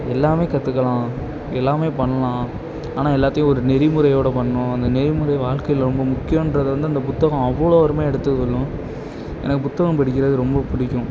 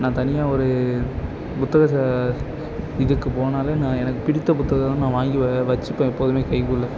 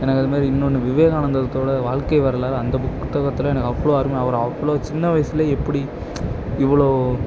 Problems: none marked